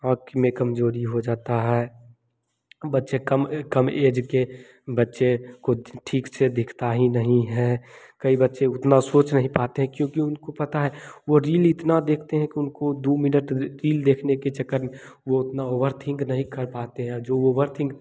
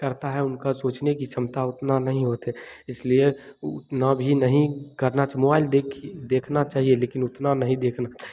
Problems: none marked